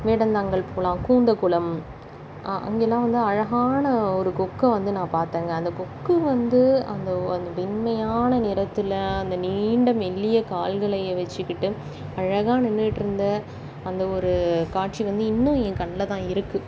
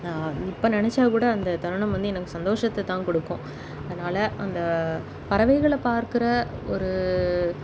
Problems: constant background noise